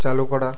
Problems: constant background noise